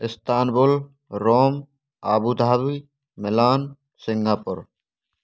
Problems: none marked